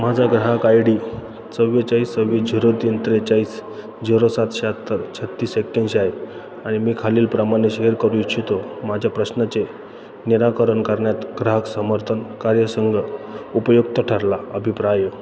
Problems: constant background noise